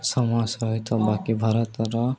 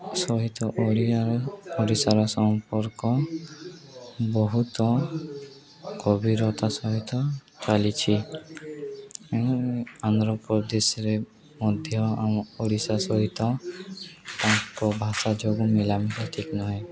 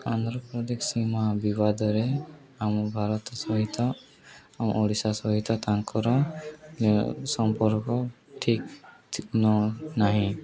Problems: none marked